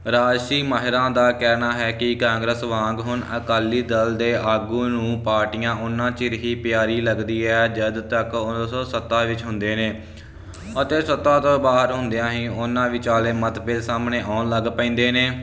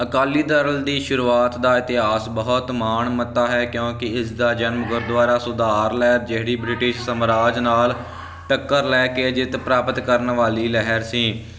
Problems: constant background noise